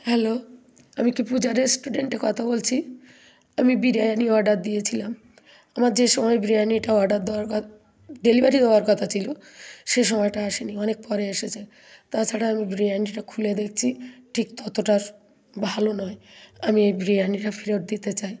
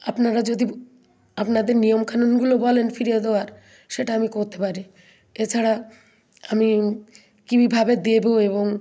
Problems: none marked